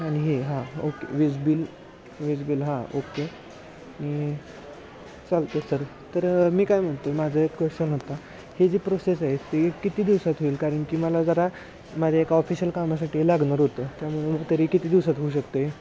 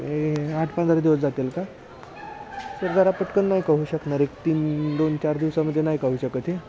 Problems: constant background noise, continuous background conversations